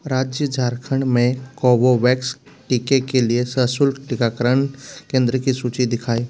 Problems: constant background noise